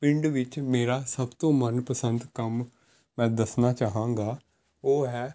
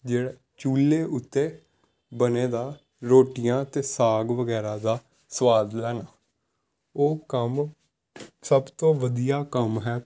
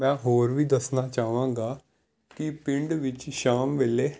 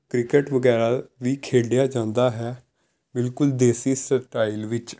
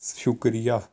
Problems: none marked